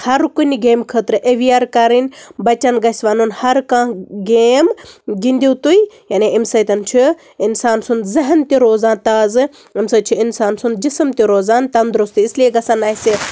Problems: constant background noise